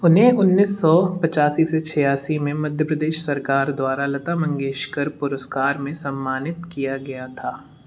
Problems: background sounds at intervals